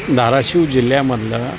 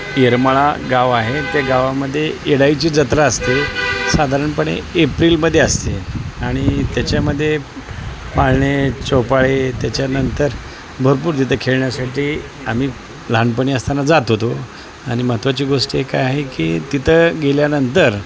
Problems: constant background noise